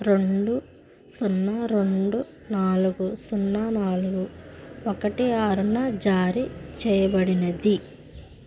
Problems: constant background noise